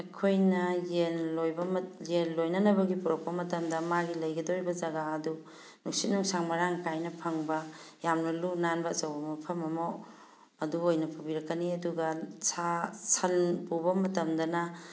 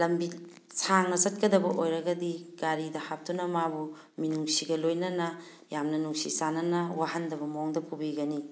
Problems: background sounds at intervals